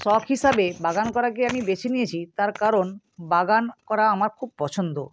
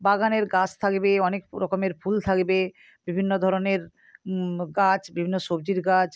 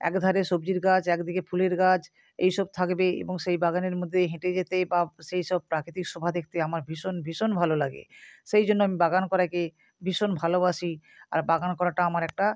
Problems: constant background noise